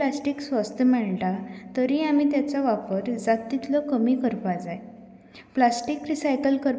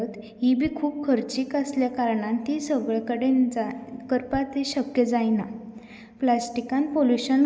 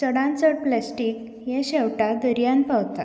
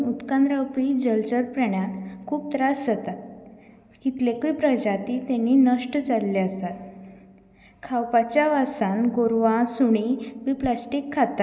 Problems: none marked